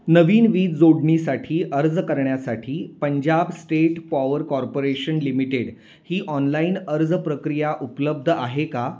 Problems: none marked